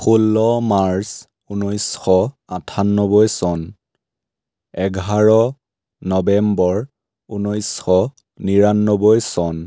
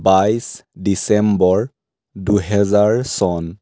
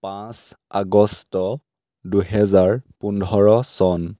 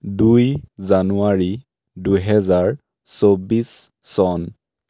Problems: none marked